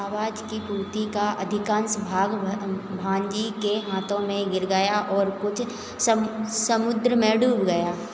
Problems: constant background noise